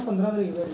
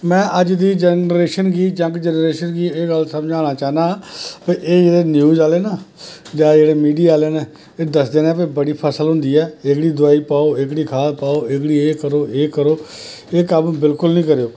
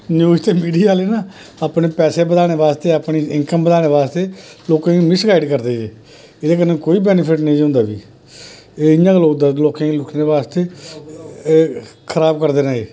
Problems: constant background noise, background conversations at intervals